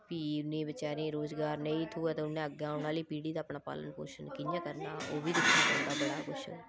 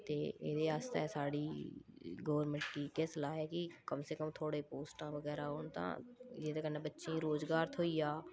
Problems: low volume